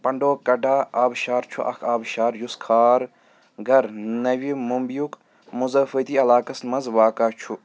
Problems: background sounds at intervals